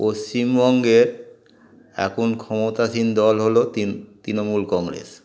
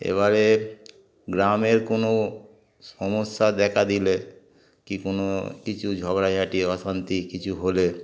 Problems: background sounds at intervals